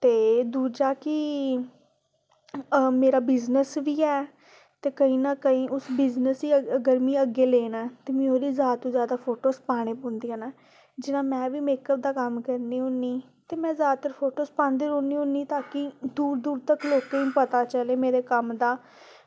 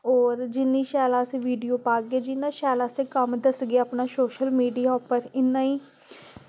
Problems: constant background noise